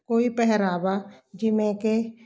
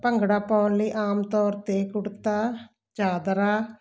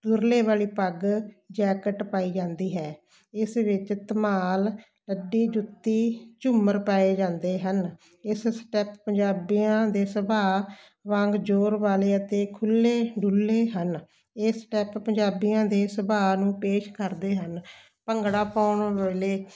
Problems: none marked